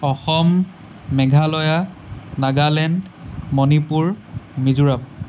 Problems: constant background noise